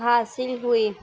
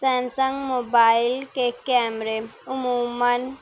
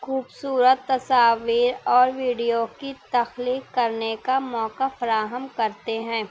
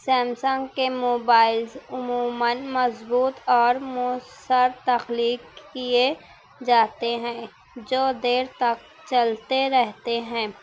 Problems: background sounds at intervals